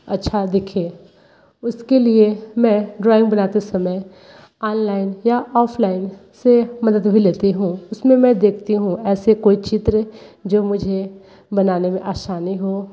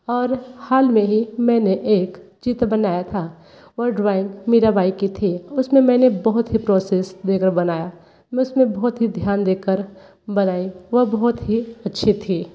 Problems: background sounds at intervals